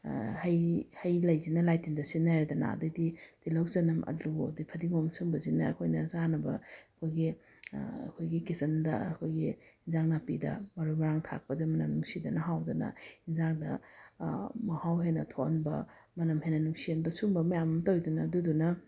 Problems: none marked